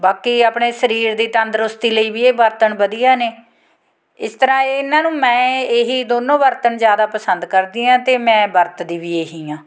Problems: constant background noise